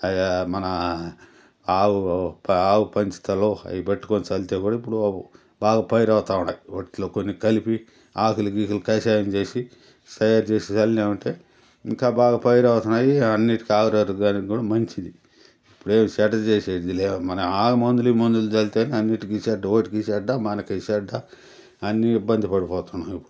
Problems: none marked